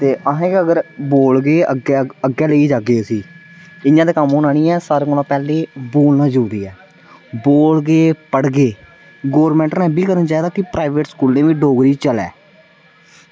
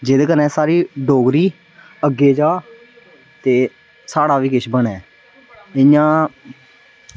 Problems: none marked